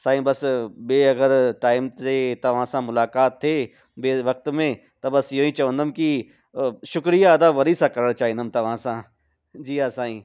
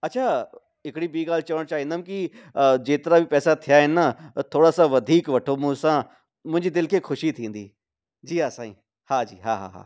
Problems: none marked